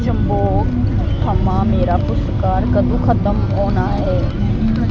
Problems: constant background noise